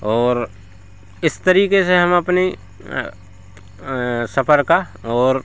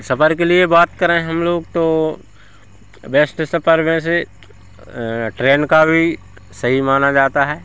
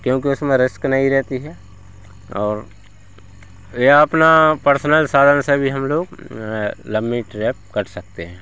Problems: none marked